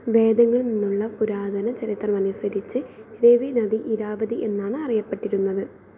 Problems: constant background noise